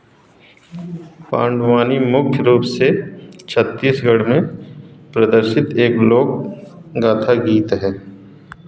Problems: constant background noise, echo